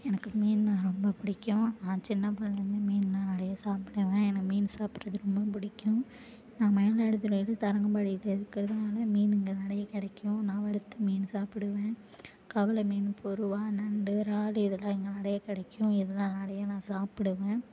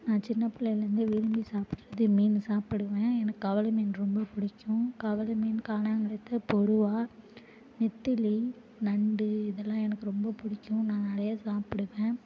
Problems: low volume